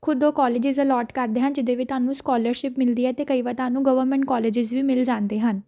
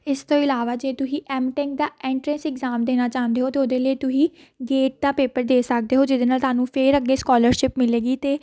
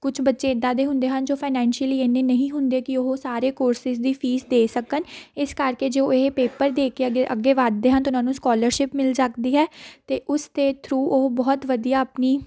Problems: background sounds at intervals